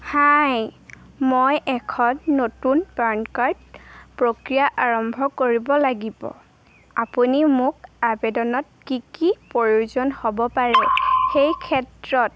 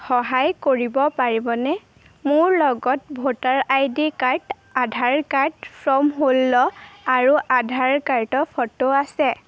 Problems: constant background noise